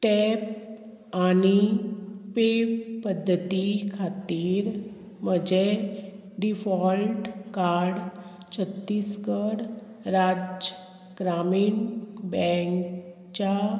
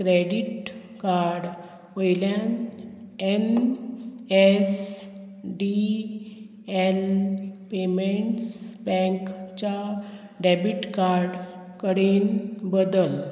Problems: constant background noise